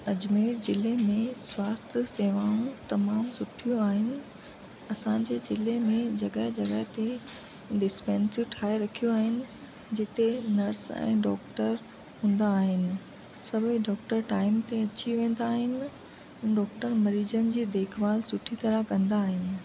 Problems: constant background noise